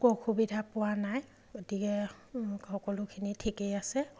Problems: background sounds at intervals